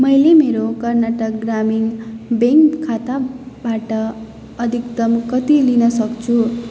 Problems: none marked